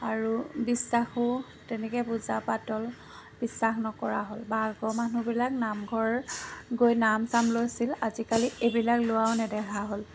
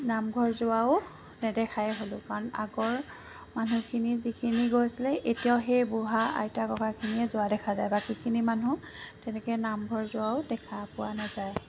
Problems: constant background noise